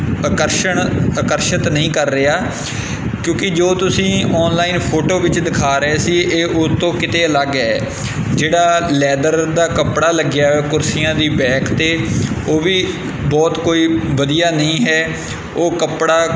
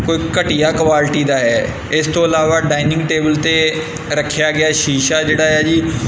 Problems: constant background noise